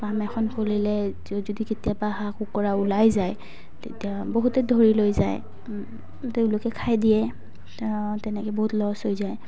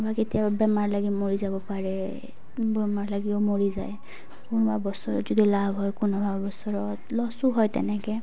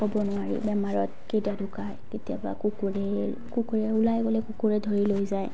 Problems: background sounds at intervals